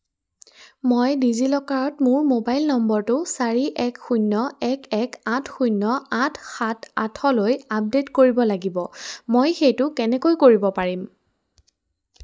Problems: background sounds at intervals